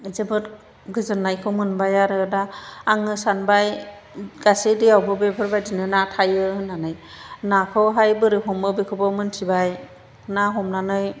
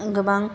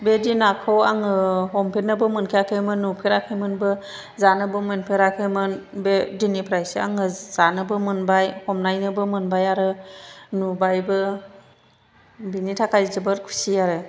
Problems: none marked